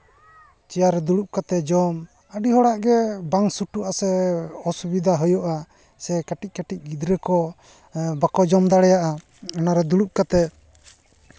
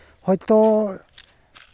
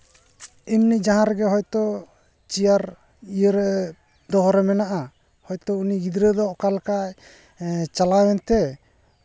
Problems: none marked